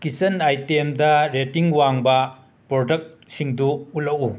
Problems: background sounds at intervals